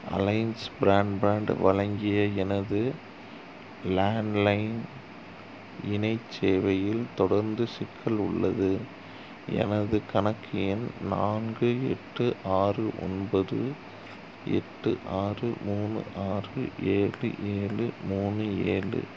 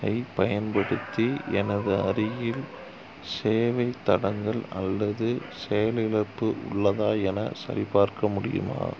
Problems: background sounds at intervals